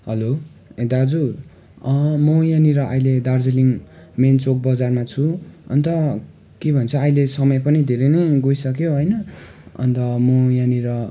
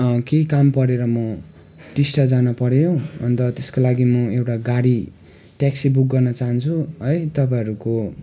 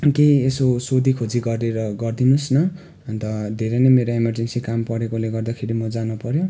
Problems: none marked